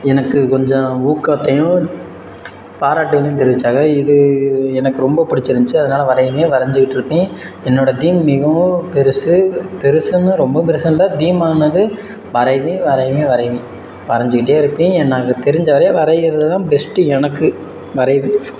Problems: background sounds at intervals